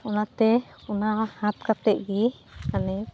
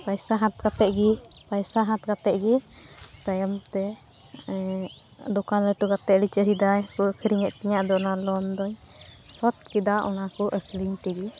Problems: background sounds at intervals